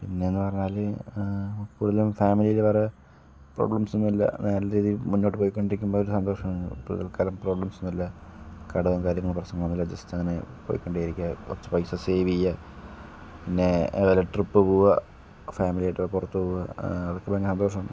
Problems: none marked